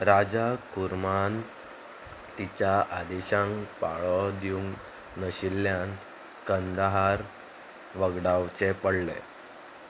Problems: constant background noise